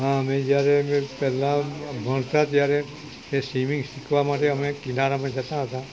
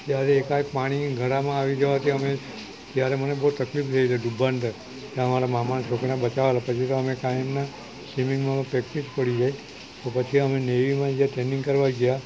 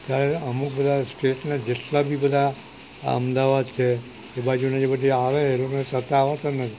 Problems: constant background noise